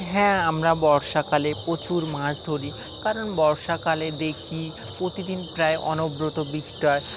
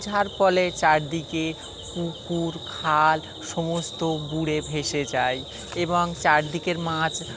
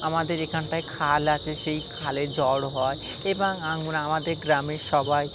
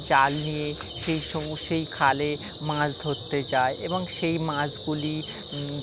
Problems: constant background noise